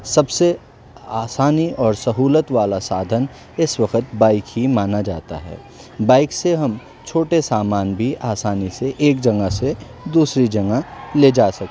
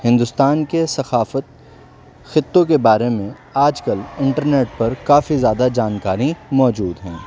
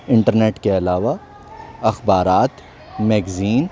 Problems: constant background noise